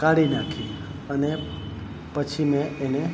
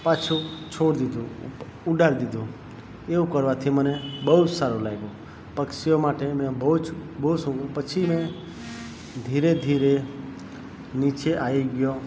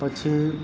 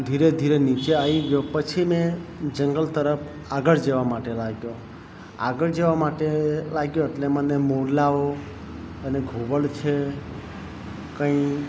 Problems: constant background noise